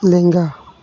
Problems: constant background noise